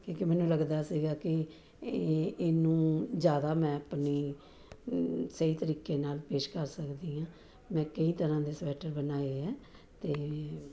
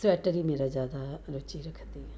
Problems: background conversations at intervals